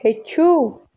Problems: constant background noise